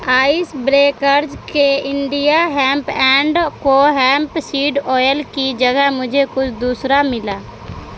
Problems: constant background noise